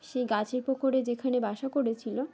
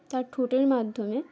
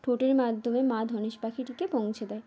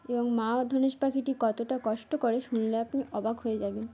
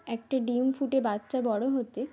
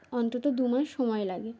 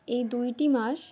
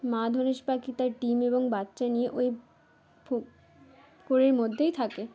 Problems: constant background noise, background conversations at intervals